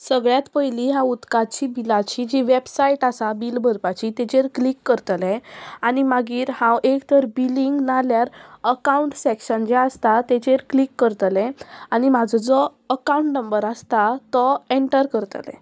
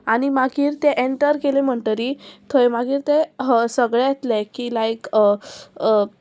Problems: constant background noise